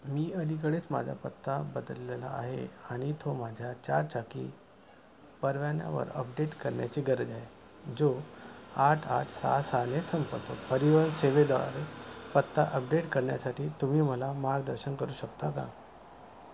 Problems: none marked